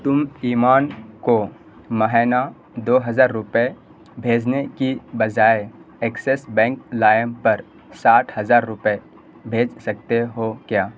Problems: constant background noise